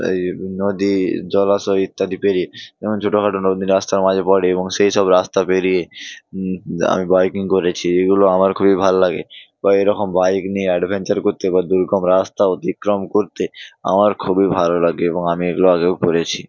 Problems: background sounds at intervals